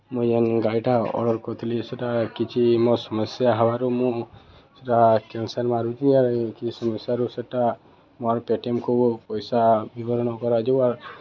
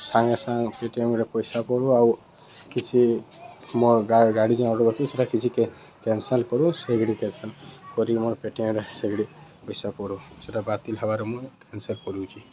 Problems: none marked